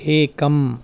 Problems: constant background noise